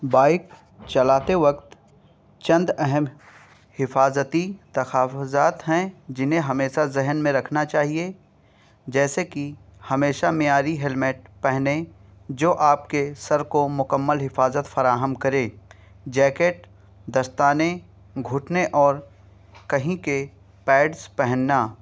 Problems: none marked